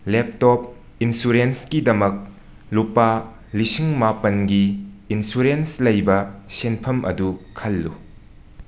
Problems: background sounds at intervals